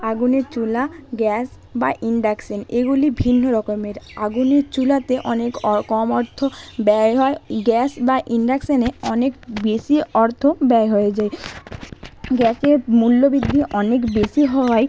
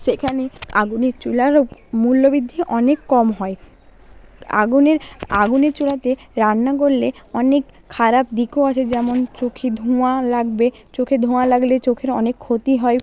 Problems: constant background noise, background conversations at intervals